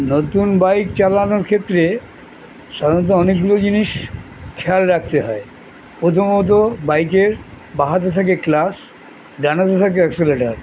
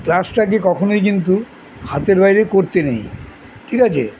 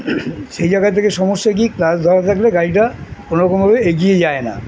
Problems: constant background noise